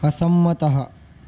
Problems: constant background noise